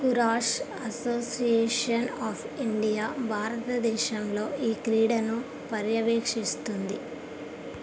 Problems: constant background noise